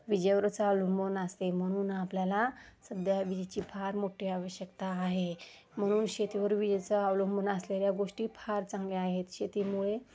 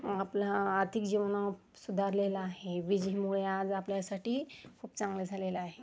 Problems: constant background noise, background conversations at intervals, low volume